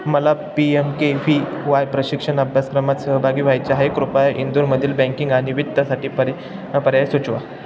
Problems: constant background noise